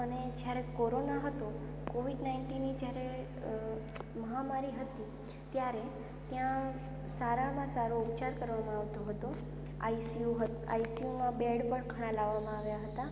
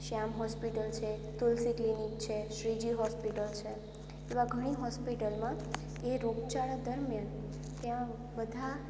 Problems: constant background noise